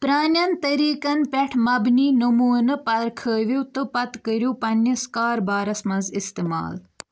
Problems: background sounds at intervals